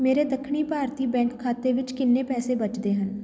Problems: continuous background conversations